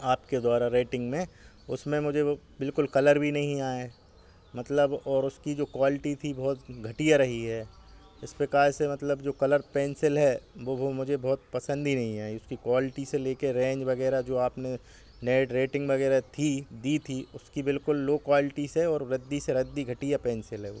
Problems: background sounds at intervals